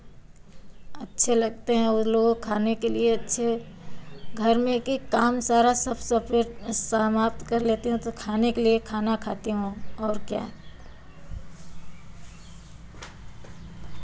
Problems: none marked